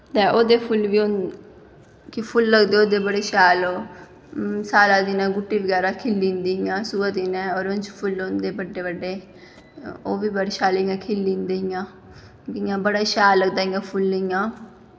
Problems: echo